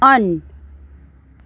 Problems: background sounds at intervals